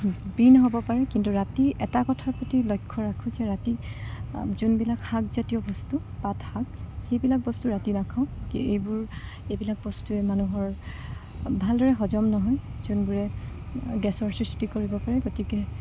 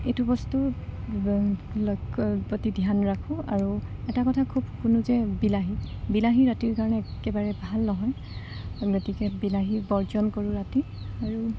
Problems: none marked